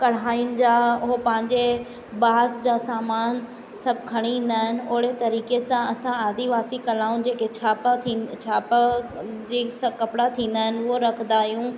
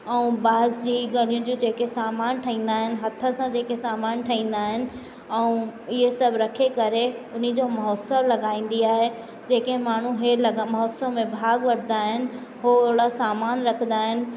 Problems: constant background noise, echo